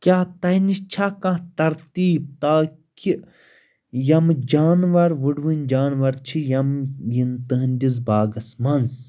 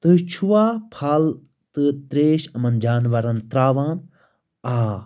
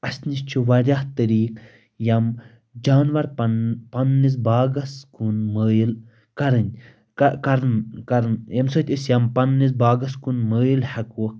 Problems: constant background noise